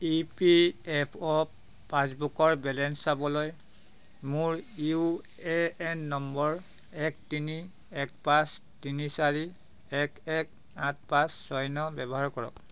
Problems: constant background noise